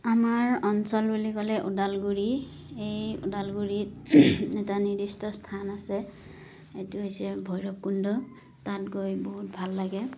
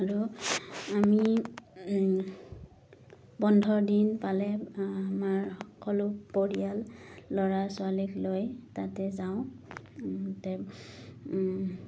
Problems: background sounds at intervals